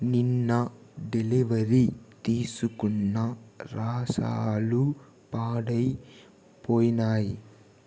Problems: constant background noise